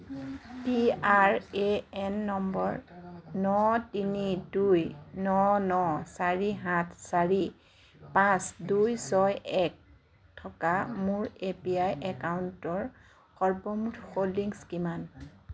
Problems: background sounds at intervals, background conversations at intervals